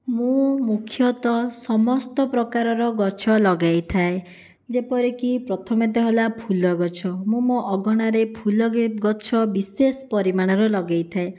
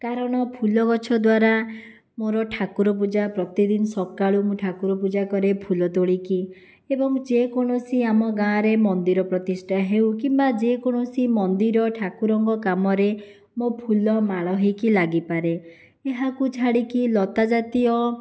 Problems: none marked